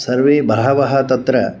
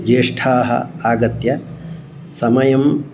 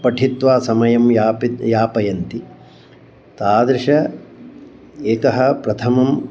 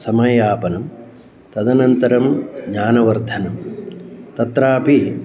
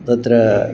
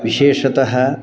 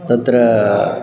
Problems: none marked